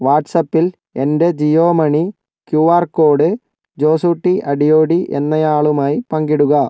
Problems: none marked